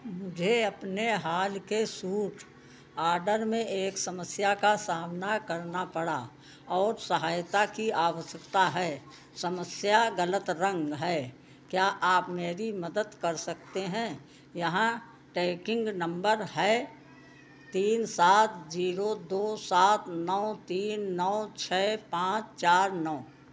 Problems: constant background noise